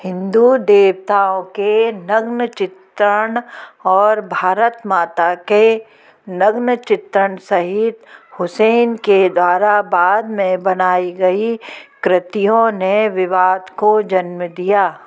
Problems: background sounds at intervals, background conversations at intervals